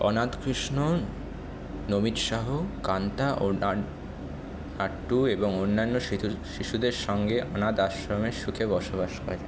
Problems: constant background noise